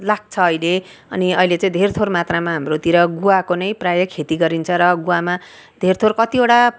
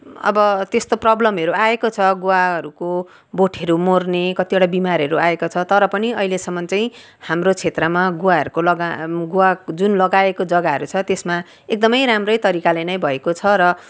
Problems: background sounds at intervals